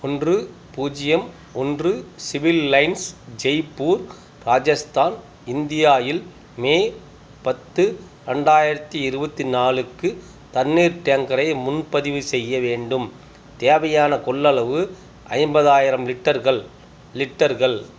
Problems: none marked